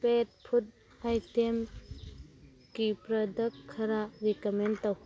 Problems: background sounds at intervals